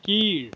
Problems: background sounds at intervals